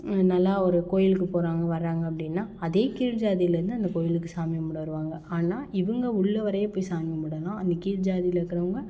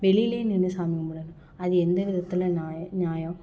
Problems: none marked